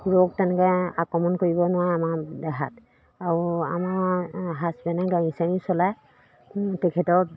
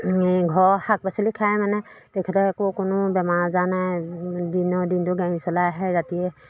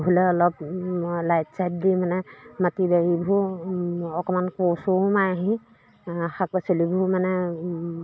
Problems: constant background noise, background conversations at intervals